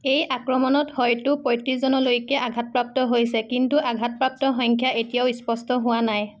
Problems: background sounds at intervals